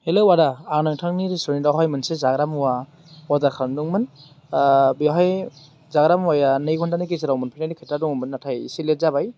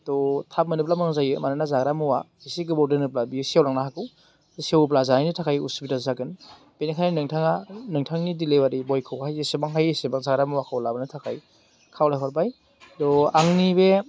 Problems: none marked